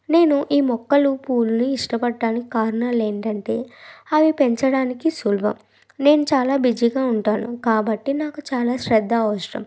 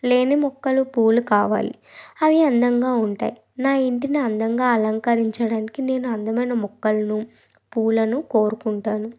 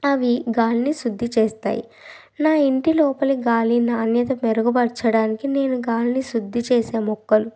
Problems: background sounds at intervals